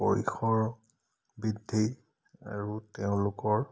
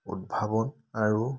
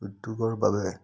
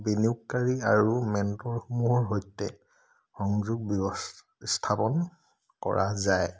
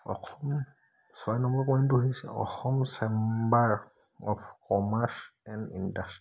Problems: none marked